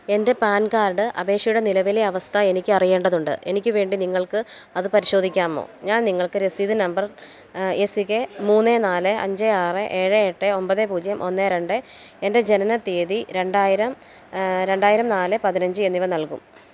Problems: background sounds at intervals